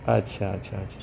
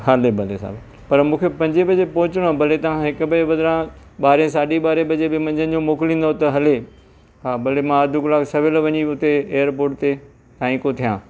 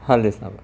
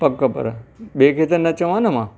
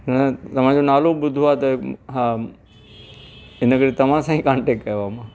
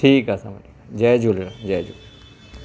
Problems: constant background noise